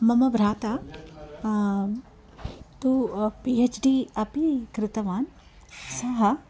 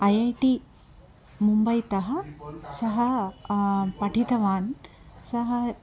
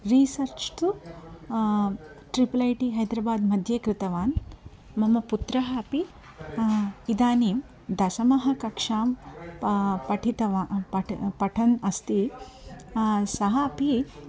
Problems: none marked